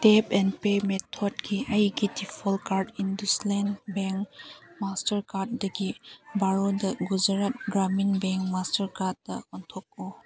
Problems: background sounds at intervals